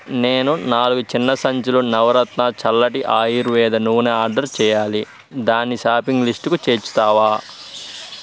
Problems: none marked